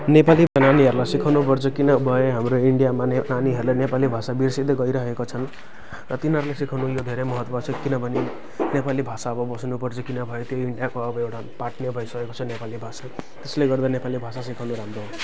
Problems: none marked